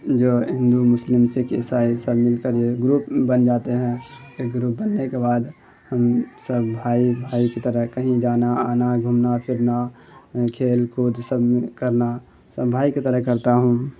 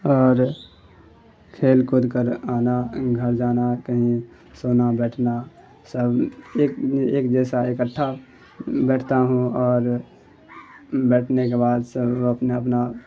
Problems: constant background noise